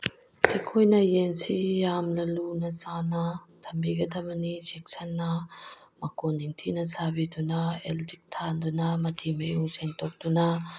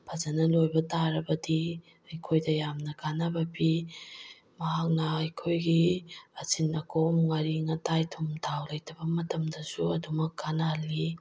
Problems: background sounds at intervals